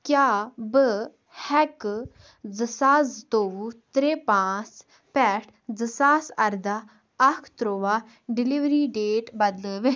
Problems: background sounds at intervals